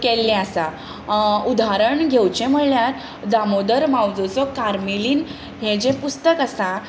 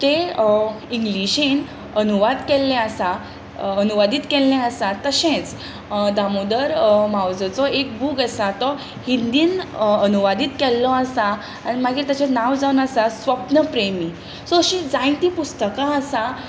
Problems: constant background noise